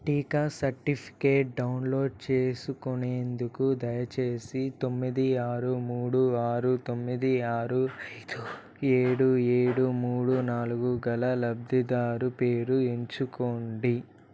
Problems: background sounds at intervals